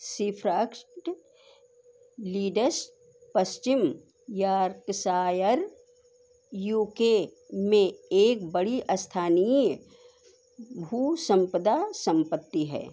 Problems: constant background noise